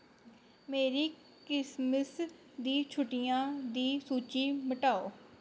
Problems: low volume